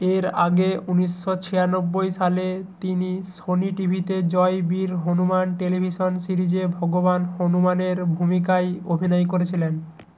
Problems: constant background noise